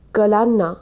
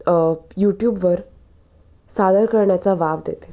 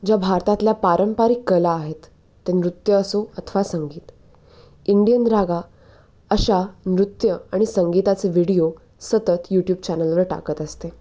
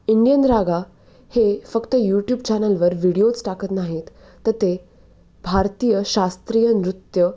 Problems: none marked